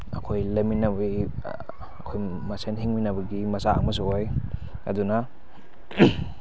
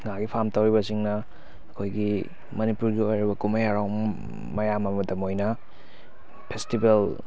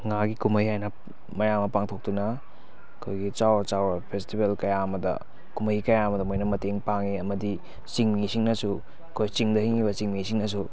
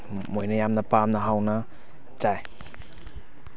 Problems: constant background noise, background conversations at intervals